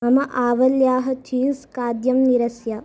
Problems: background sounds at intervals, background conversations at intervals